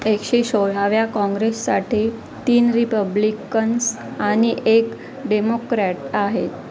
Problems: constant background noise